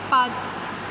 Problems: constant background noise